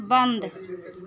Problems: low volume